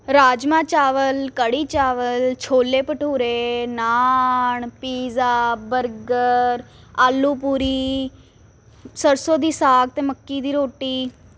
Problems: constant background noise